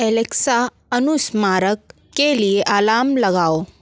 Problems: constant background noise